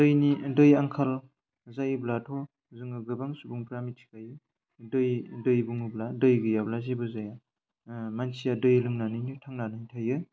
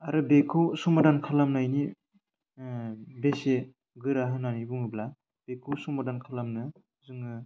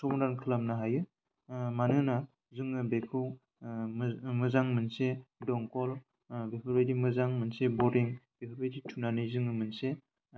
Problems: low volume